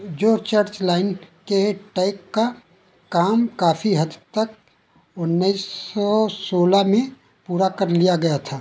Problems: background sounds at intervals